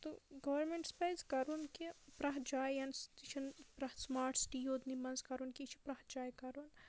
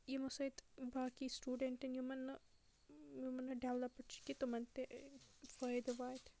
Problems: low volume